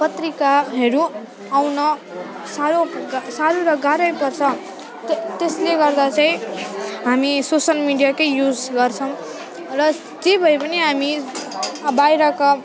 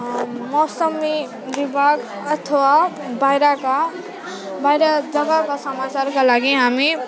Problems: constant background noise, continuous background conversations